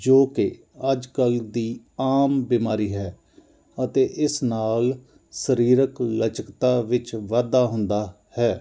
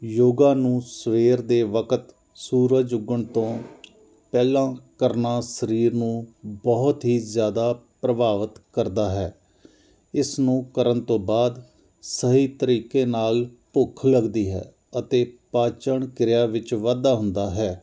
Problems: none marked